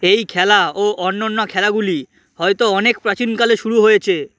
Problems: constant background noise